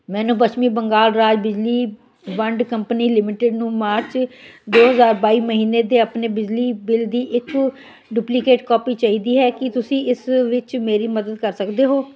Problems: continuous background conversations